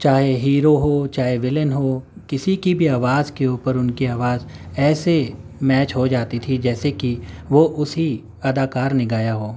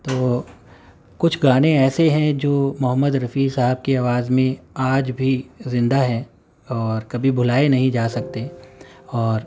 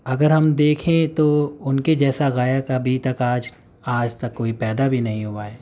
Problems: none marked